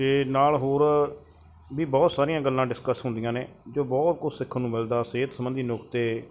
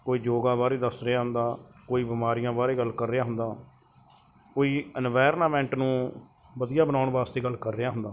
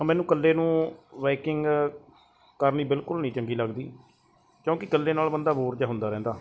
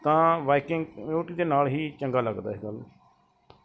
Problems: background sounds at intervals